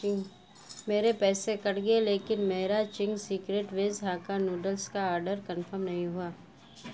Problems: constant background noise